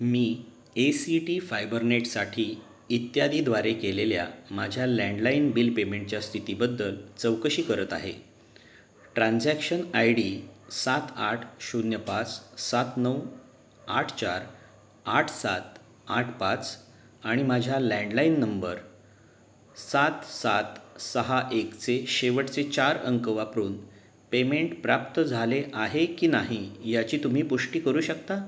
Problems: background sounds at intervals